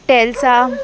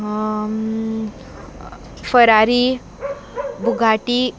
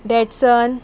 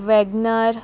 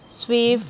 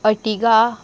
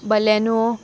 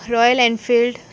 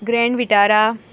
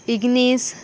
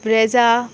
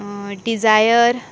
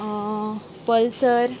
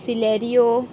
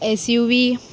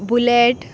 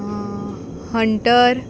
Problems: constant background noise